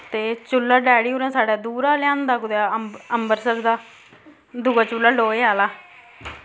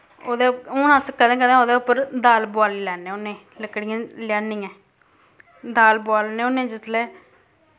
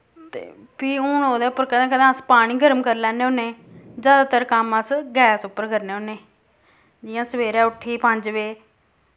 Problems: constant background noise